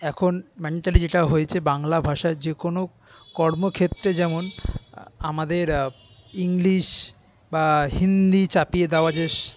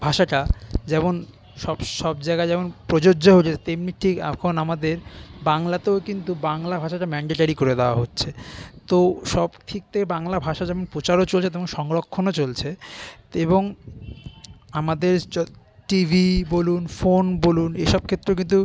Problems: constant background noise, continuous background conversations